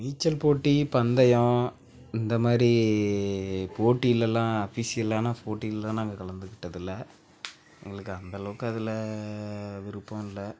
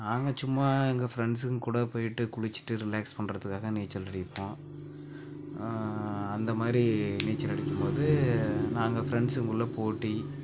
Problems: background sounds at intervals, background conversations at intervals, low volume